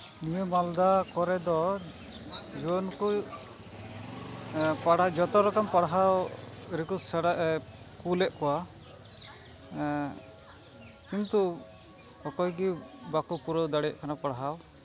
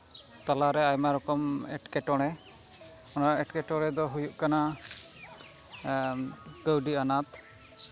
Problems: constant background noise, continuous background conversations